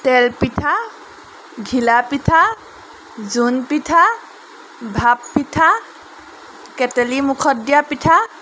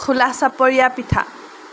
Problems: background sounds at intervals